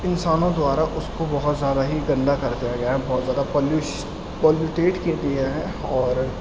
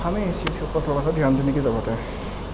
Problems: constant background noise, low volume